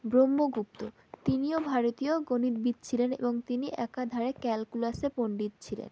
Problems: none marked